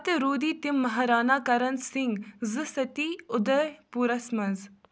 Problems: background sounds at intervals